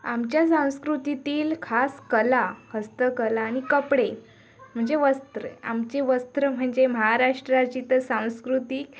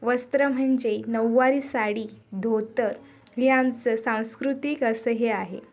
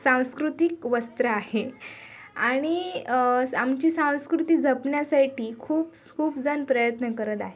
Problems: constant background noise, background conversations at intervals